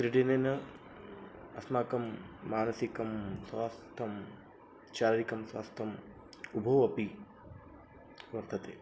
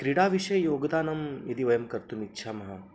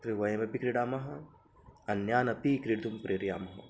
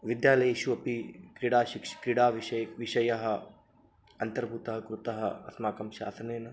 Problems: none marked